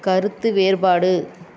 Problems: background conversations at intervals